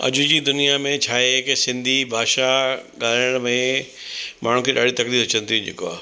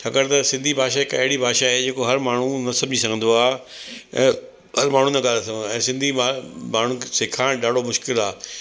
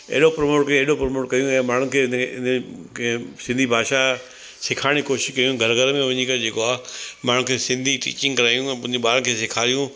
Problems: constant background noise